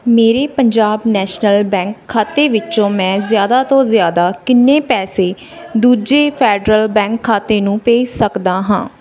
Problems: background sounds at intervals, background conversations at intervals